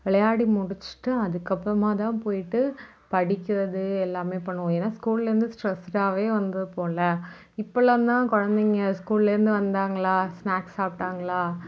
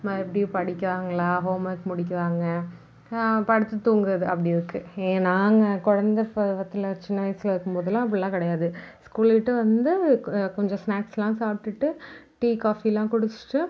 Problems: background sounds at intervals